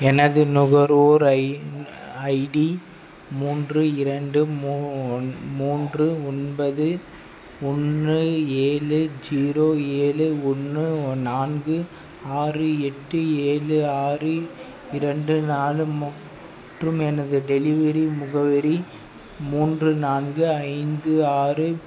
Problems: background sounds at intervals